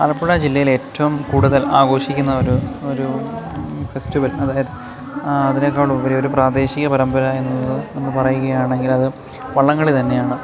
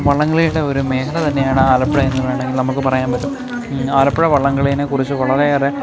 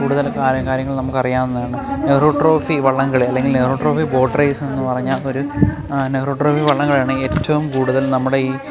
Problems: constant background noise